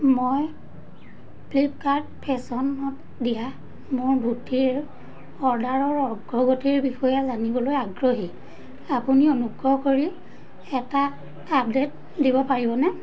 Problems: constant background noise